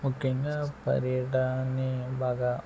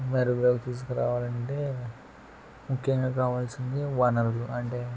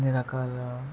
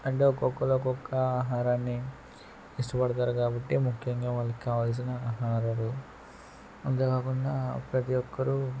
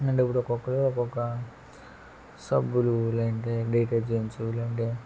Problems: background sounds at intervals, low volume